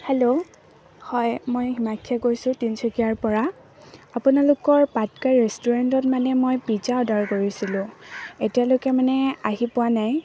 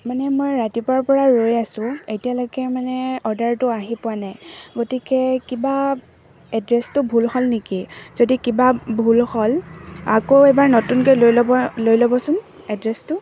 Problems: constant background noise, background conversations at intervals